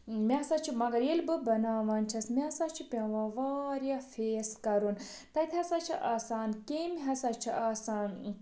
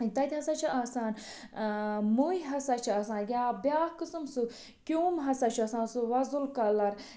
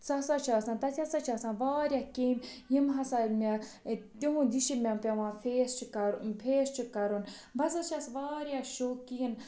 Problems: background sounds at intervals, background conversations at intervals